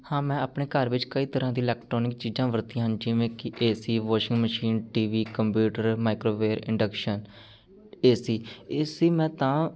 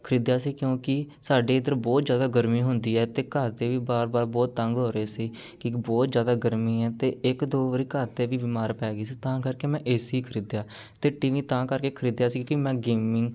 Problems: none marked